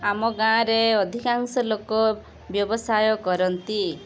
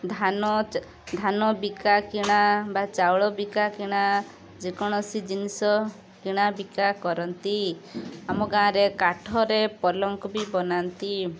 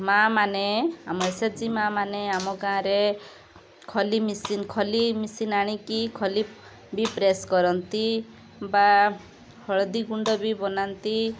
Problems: constant background noise